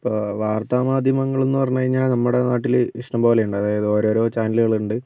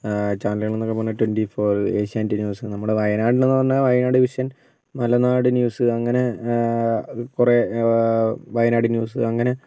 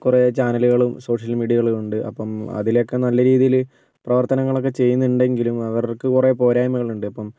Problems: none marked